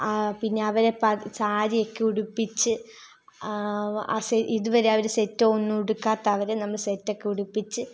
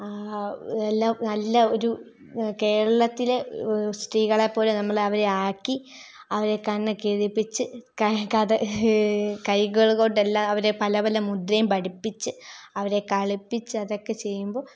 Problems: none marked